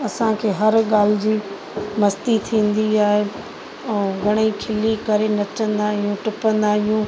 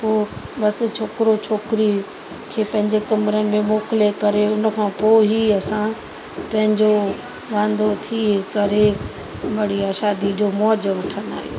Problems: constant background noise